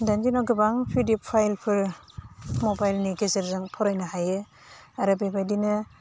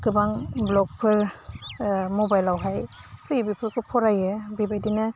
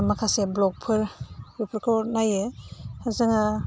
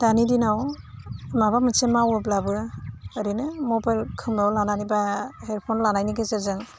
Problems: constant background noise